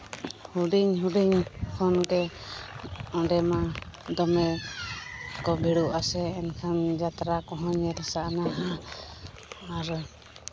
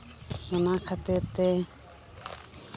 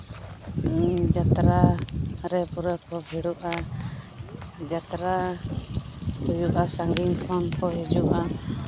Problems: background conversations at intervals